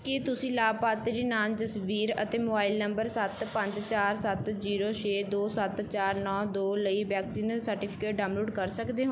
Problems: background sounds at intervals